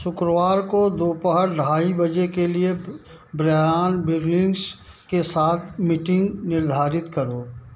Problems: background sounds at intervals